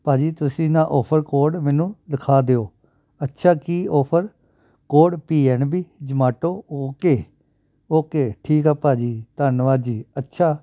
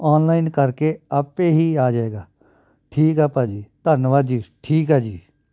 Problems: background sounds at intervals